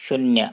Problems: none marked